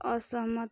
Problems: none marked